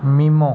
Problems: background sounds at intervals